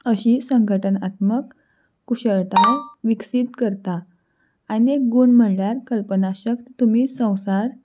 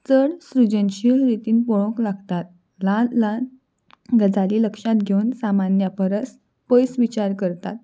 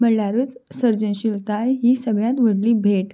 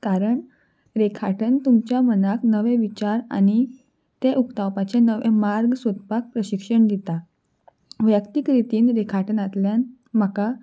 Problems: background sounds at intervals